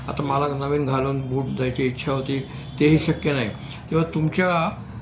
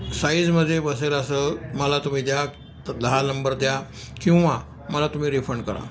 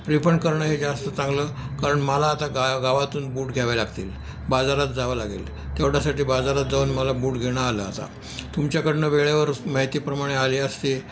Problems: none marked